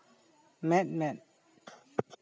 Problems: none marked